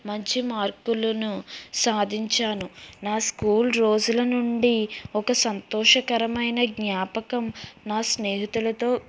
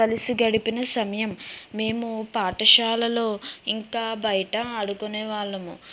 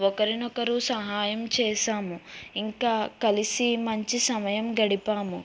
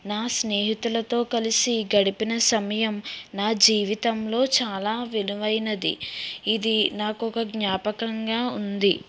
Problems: background sounds at intervals